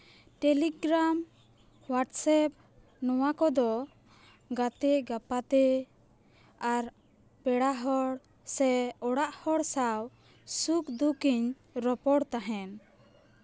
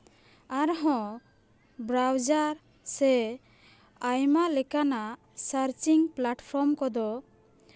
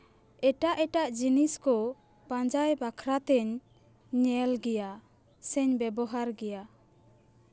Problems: none marked